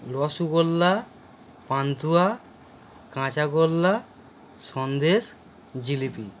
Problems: none marked